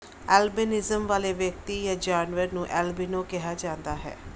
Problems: background sounds at intervals